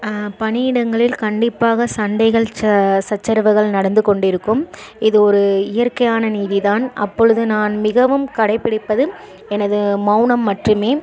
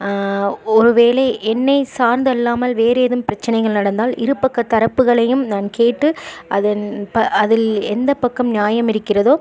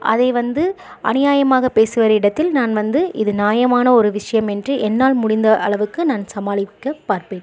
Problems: continuous background conversations